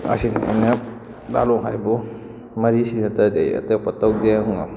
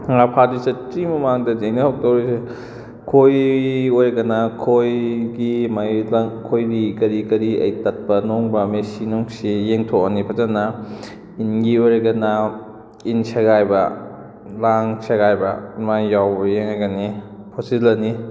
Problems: background sounds at intervals